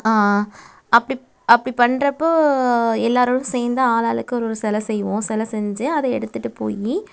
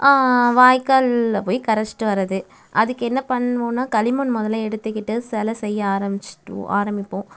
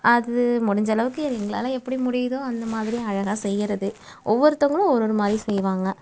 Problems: background sounds at intervals